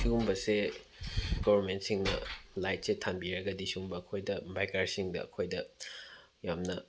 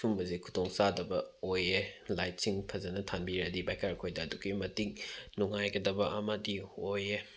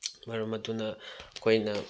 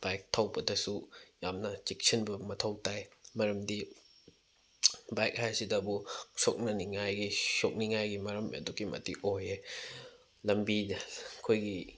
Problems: none marked